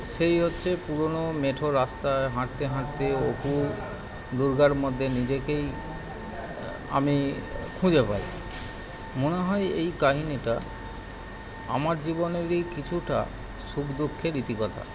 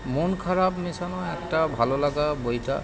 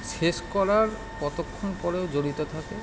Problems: none marked